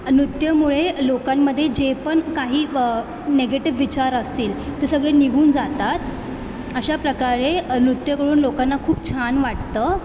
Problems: constant background noise, background conversations at intervals